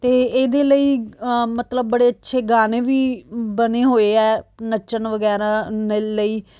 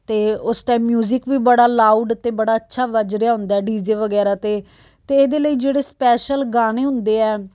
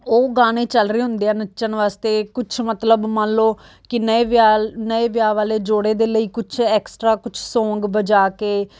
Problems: background sounds at intervals